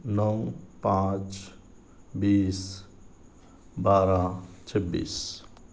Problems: none marked